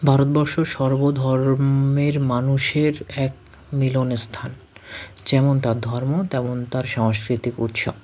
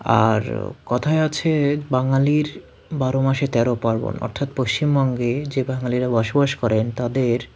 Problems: background sounds at intervals